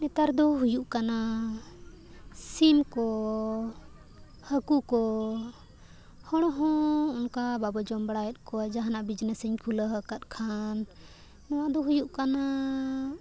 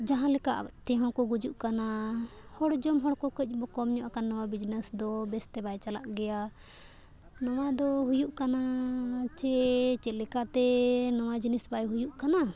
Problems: none marked